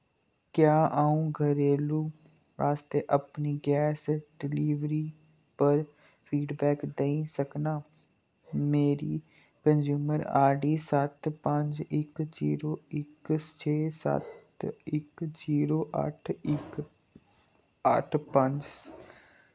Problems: low volume